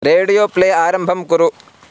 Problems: none marked